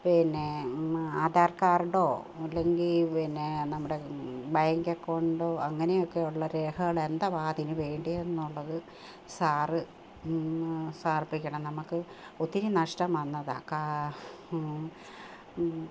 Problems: constant background noise